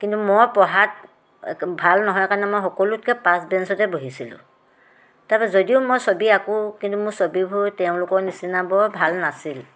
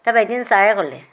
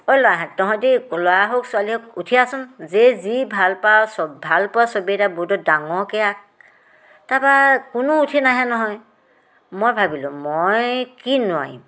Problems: background sounds at intervals